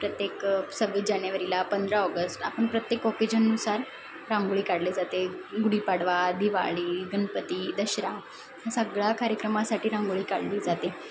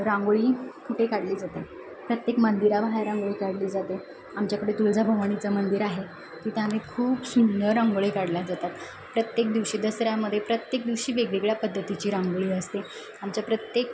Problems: constant background noise